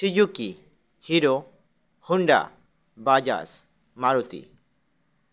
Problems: none marked